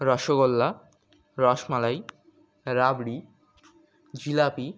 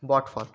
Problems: background sounds at intervals